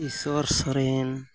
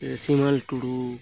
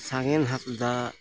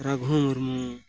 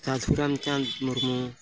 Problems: background sounds at intervals